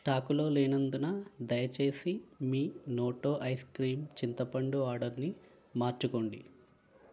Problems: constant background noise